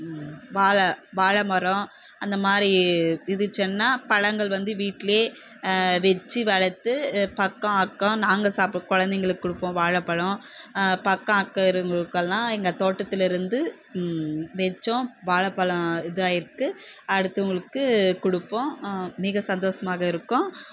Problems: constant background noise